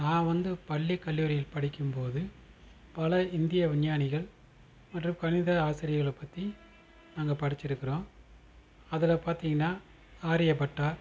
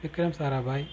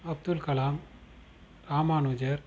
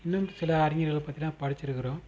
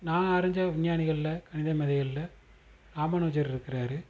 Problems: constant background noise